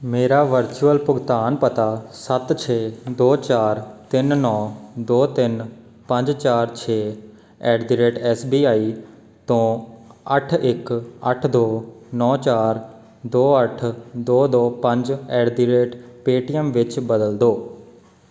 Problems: none marked